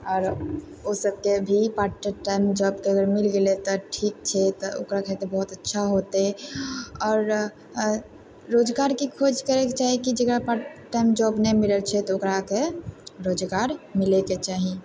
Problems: constant background noise